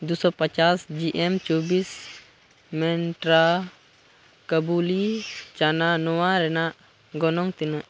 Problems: none marked